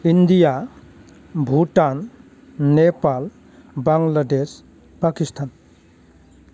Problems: low volume